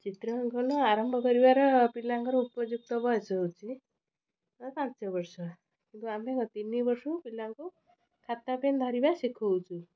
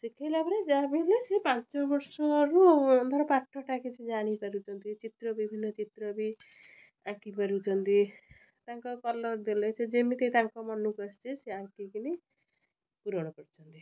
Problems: low volume